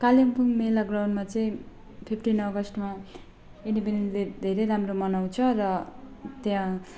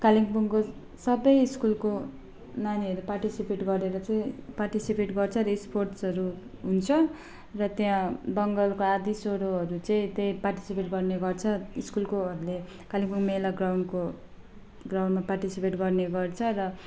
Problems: background sounds at intervals